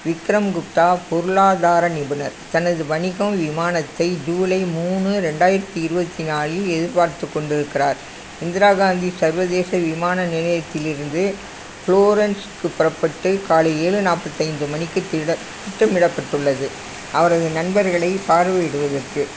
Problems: constant background noise